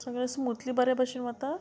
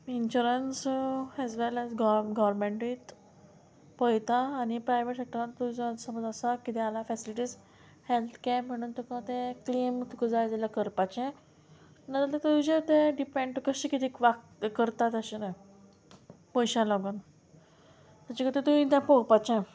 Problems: none marked